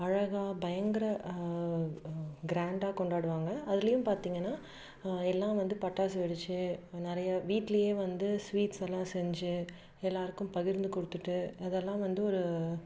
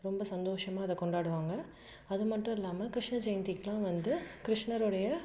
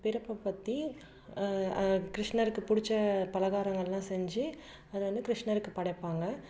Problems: none marked